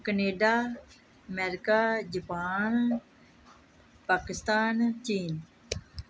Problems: background sounds at intervals